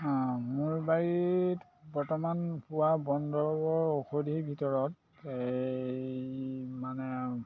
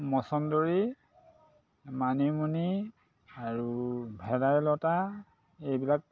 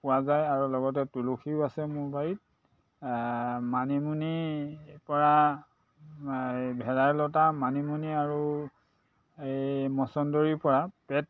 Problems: constant background noise, background conversations at intervals